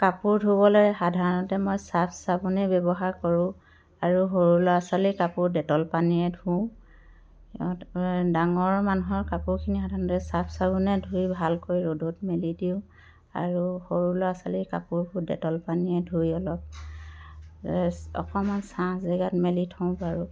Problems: constant background noise